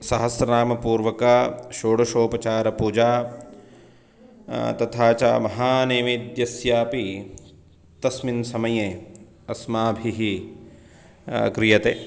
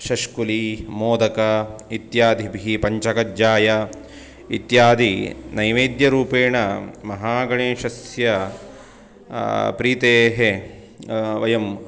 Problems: none marked